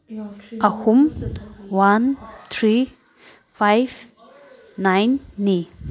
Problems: background sounds at intervals